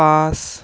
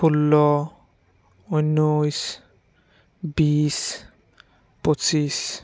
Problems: background sounds at intervals